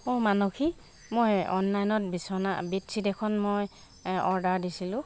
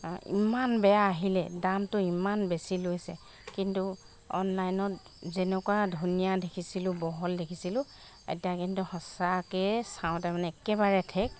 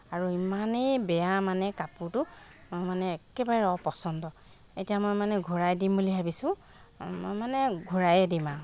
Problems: constant background noise